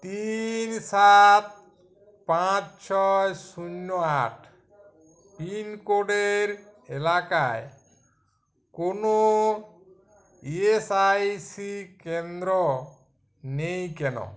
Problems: none marked